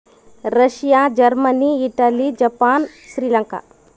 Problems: background sounds at intervals